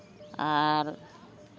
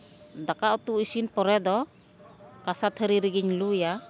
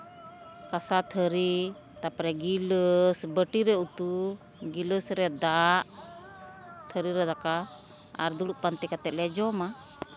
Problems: constant background noise